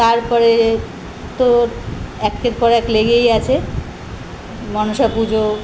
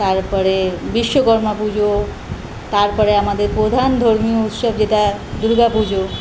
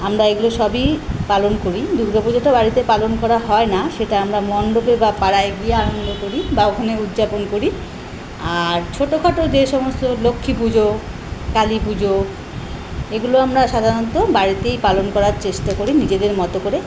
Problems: none marked